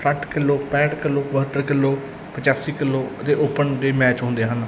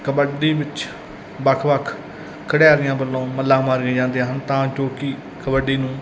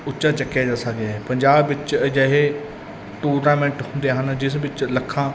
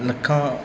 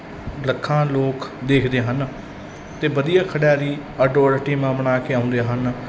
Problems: none marked